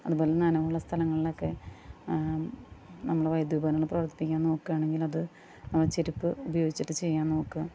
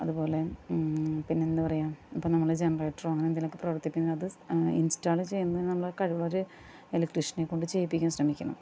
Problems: background sounds at intervals, low volume